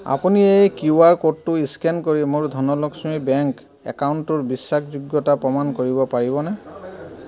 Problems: background sounds at intervals, background conversations at intervals